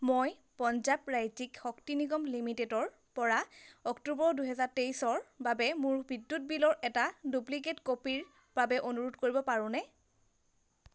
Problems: constant background noise